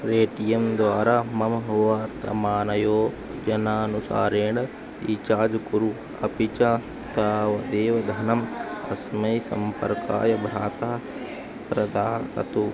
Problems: constant background noise, background conversations at intervals